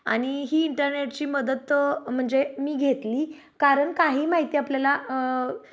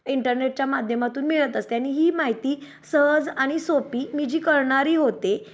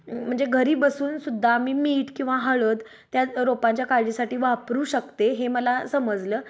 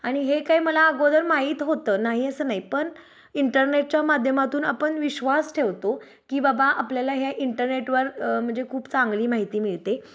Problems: background sounds at intervals, background conversations at intervals